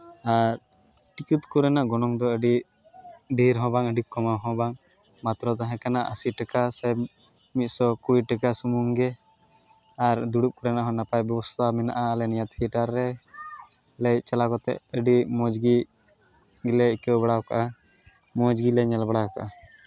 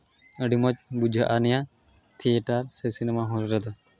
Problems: constant background noise